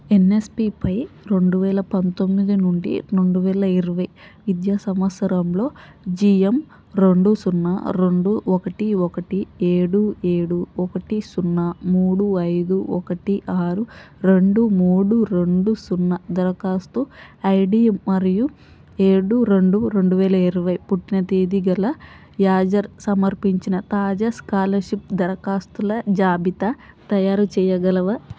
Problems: constant background noise